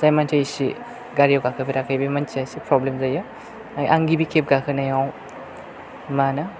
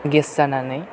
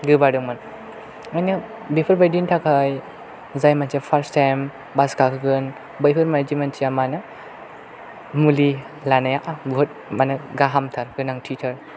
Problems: none marked